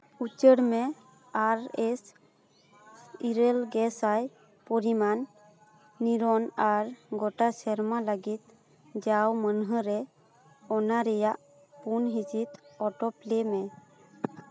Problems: background sounds at intervals, continuous background conversations